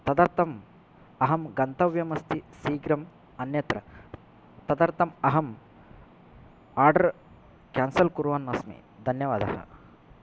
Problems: none marked